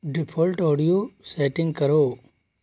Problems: constant background noise